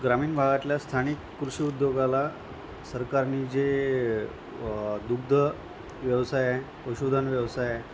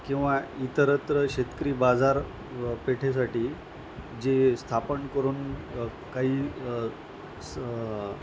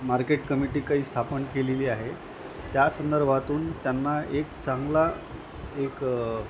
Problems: constant background noise, background conversations at intervals